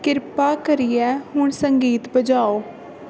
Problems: constant background noise